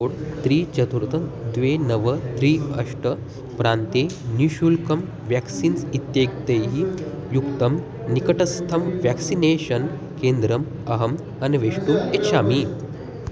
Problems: background sounds at intervals